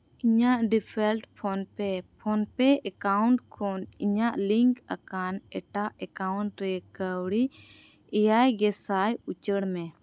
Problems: constant background noise